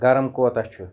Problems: none marked